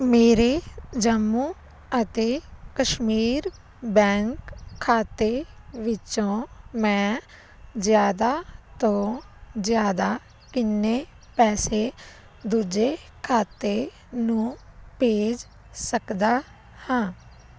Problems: constant background noise